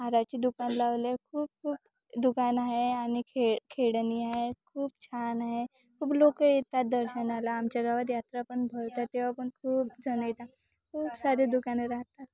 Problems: constant background noise, continuous background conversations